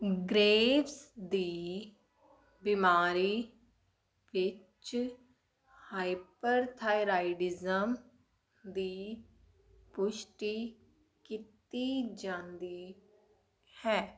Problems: none marked